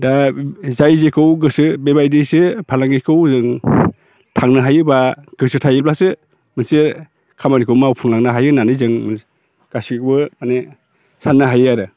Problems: constant background noise